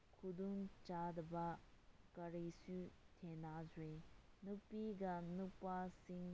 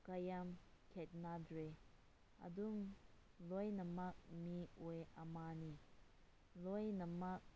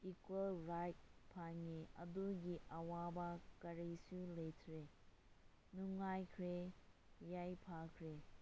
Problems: low volume